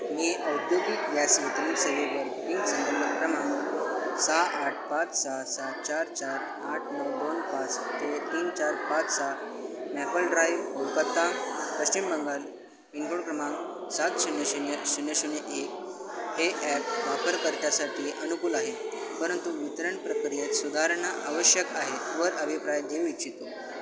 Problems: constant background noise, continuous background conversations